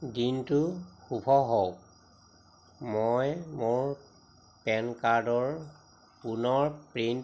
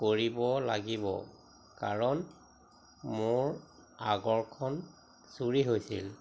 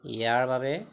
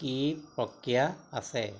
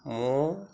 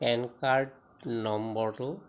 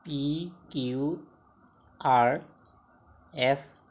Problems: constant background noise